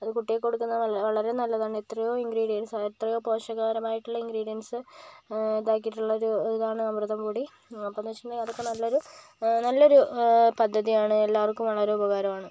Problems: none marked